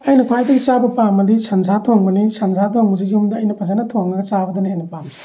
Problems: none marked